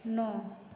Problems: constant background noise, echo